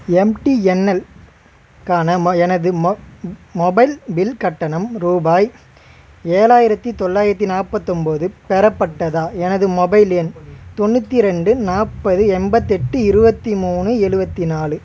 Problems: constant background noise, continuous background conversations